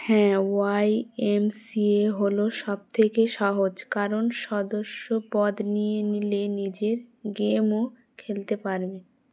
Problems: background sounds at intervals